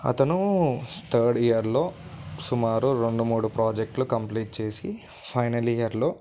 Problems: background sounds at intervals